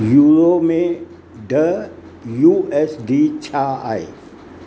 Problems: constant background noise, echo